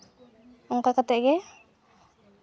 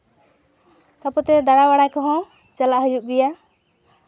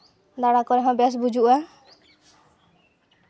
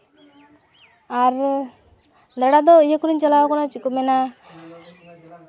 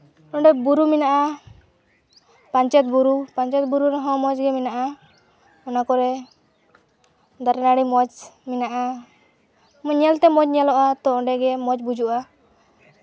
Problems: background sounds at intervals, continuous background conversations